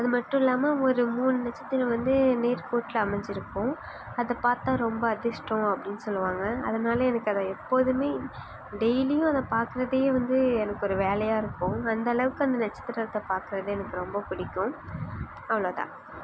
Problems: background sounds at intervals